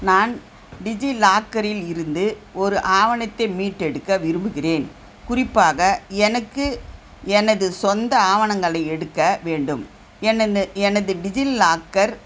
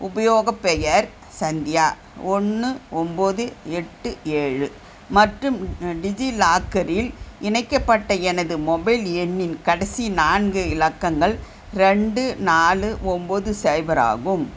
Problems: constant background noise